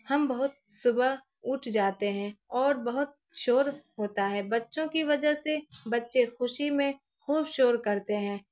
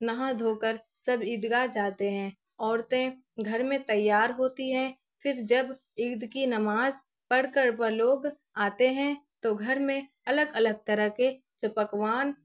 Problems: none marked